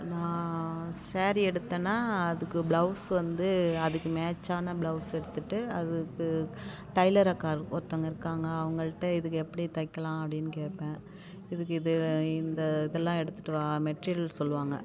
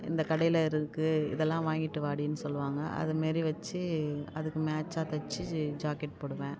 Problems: none marked